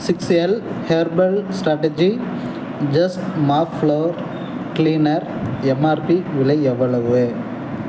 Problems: background sounds at intervals